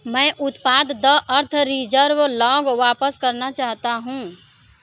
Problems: none marked